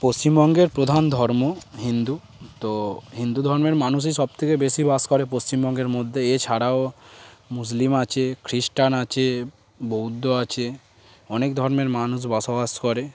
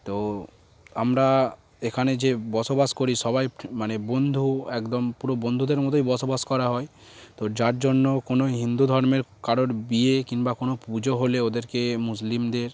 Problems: background sounds at intervals